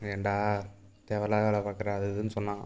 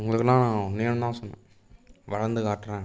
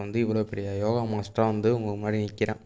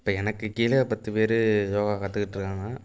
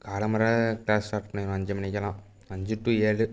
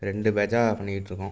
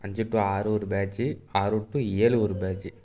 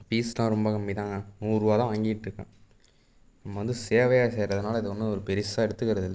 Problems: none marked